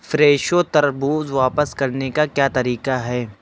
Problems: constant background noise